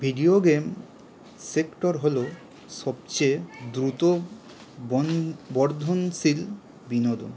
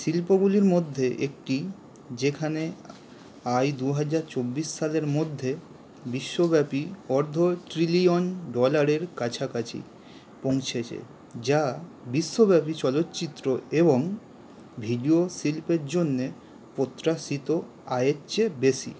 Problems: constant background noise